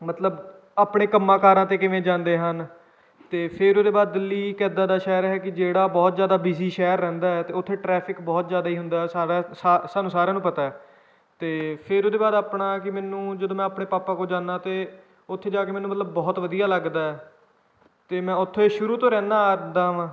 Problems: background sounds at intervals, background conversations at intervals